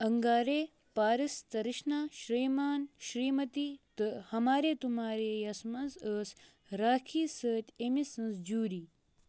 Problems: none marked